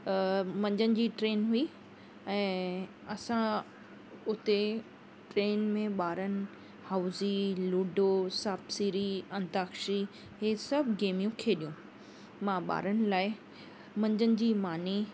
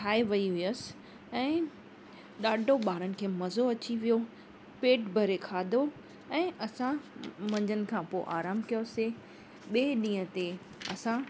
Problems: constant background noise